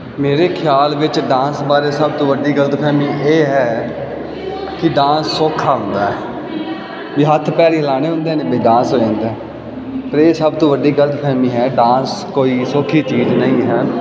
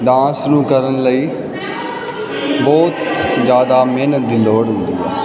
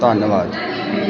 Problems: continuous background conversations